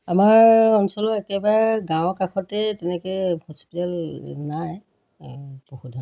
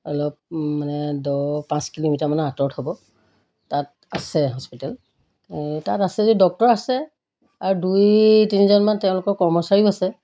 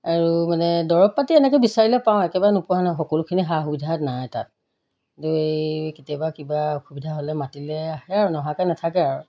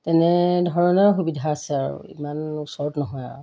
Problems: background sounds at intervals